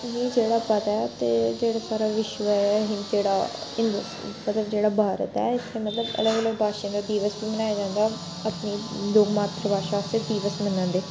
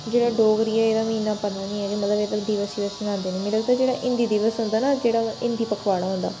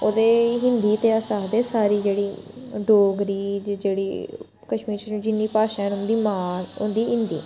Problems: constant background noise